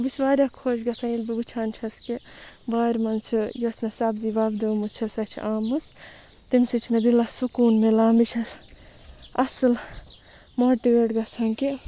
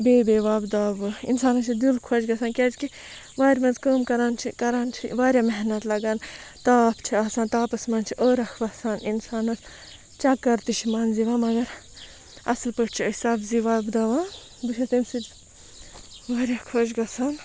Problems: constant background noise, background conversations at intervals